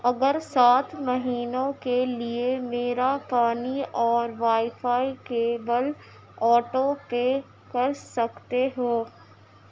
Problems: constant background noise